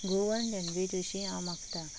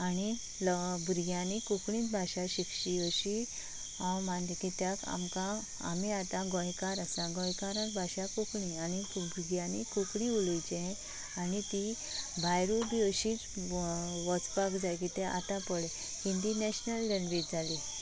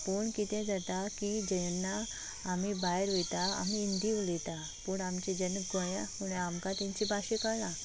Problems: constant background noise